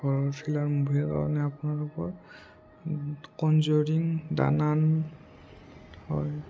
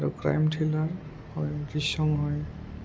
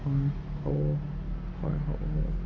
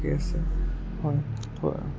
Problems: low volume